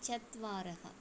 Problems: low volume